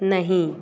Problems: continuous background conversations